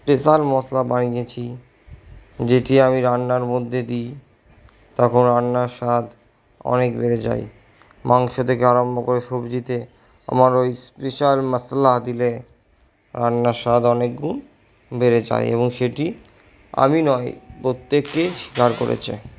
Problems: background sounds at intervals